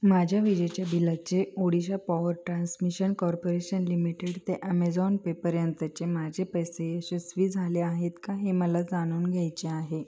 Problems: constant background noise